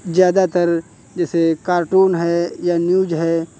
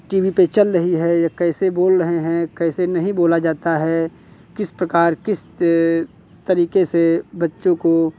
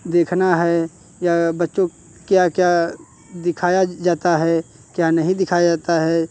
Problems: constant background noise